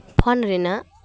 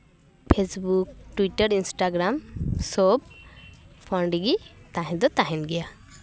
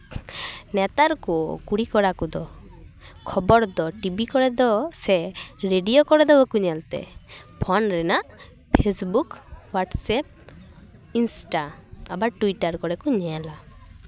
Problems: background sounds at intervals